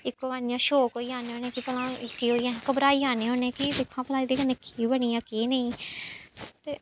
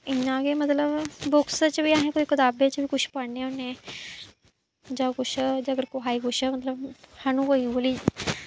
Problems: background sounds at intervals